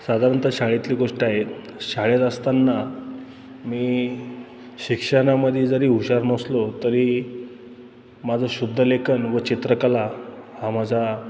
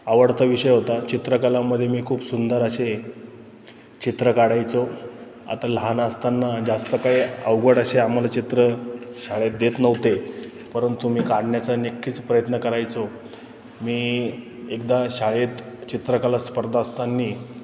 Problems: constant background noise, background conversations at intervals